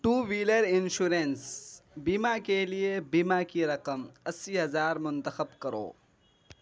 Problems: none marked